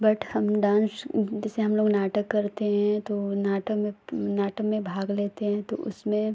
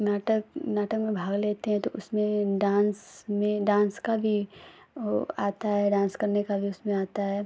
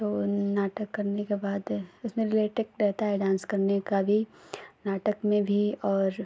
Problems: none marked